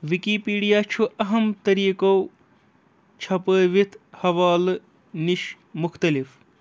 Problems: none marked